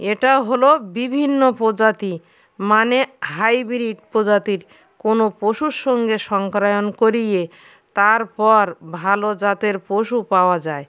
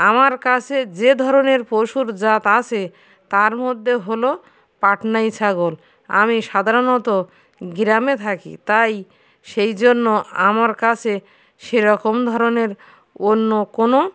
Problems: constant background noise, background conversations at intervals